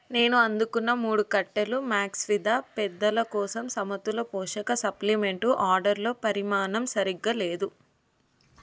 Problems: none marked